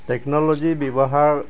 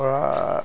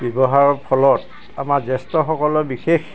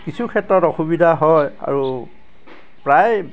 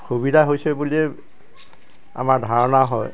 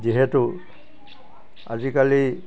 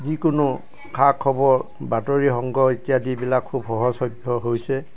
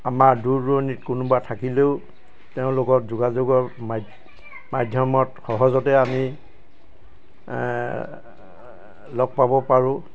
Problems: constant background noise, background conversations at intervals